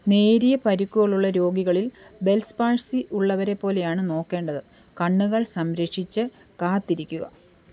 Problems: none marked